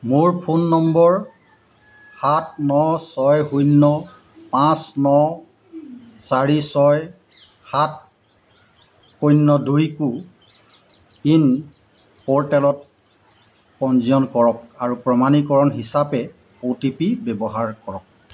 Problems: constant background noise